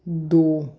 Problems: none marked